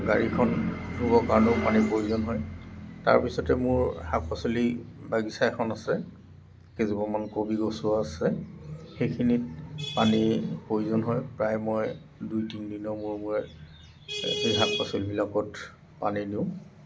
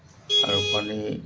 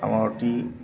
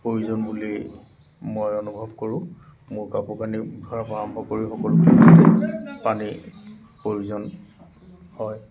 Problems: none marked